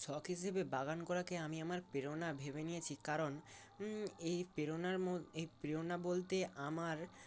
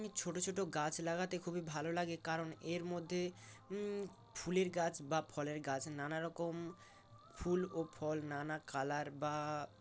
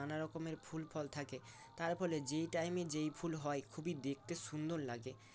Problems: constant background noise